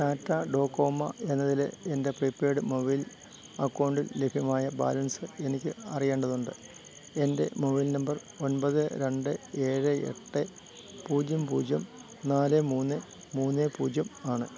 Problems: none marked